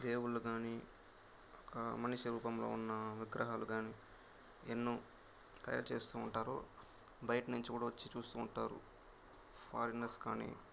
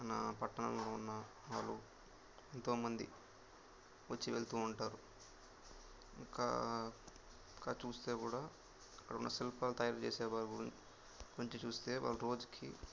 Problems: constant background noise